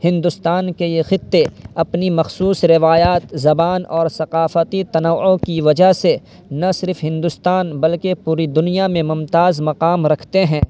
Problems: constant background noise